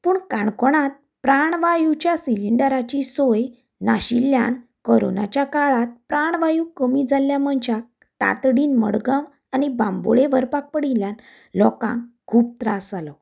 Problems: none marked